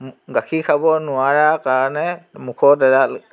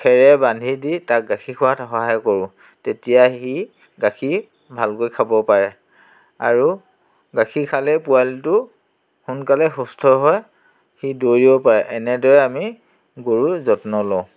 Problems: constant background noise, background conversations at intervals